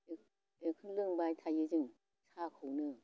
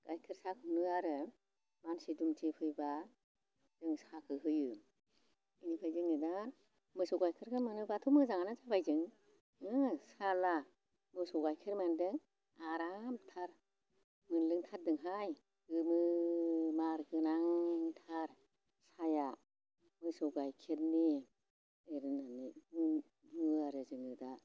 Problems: constant background noise